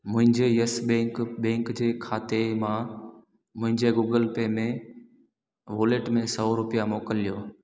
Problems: echo